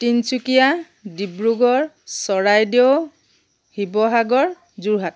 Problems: none marked